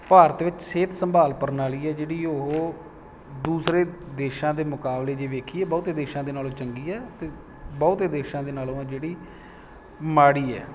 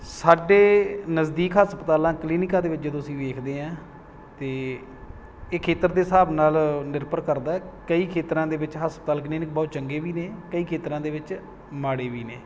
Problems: none marked